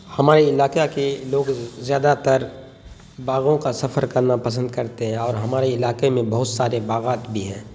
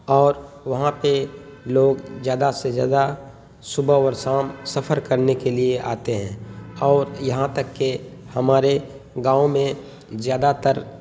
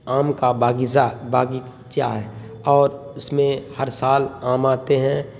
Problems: constant background noise